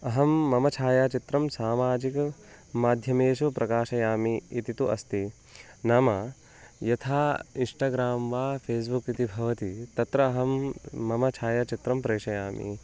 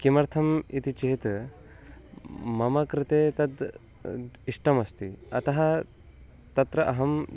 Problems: constant background noise